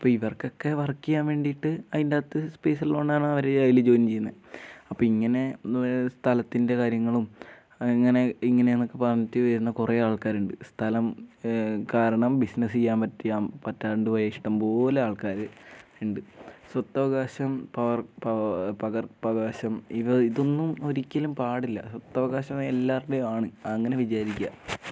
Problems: none marked